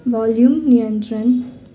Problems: none marked